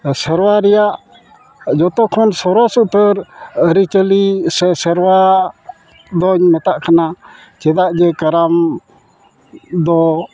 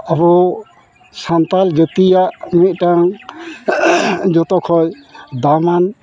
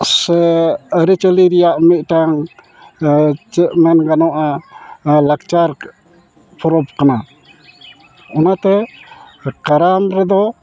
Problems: background sounds at intervals